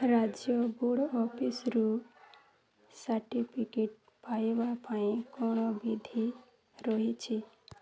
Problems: low volume